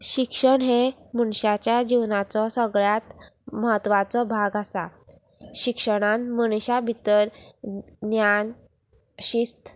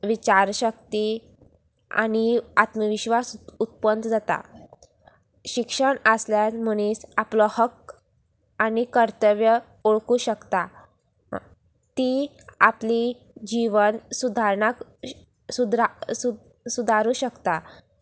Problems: none marked